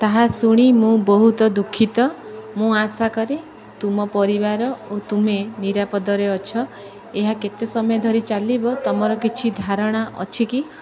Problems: continuous background conversations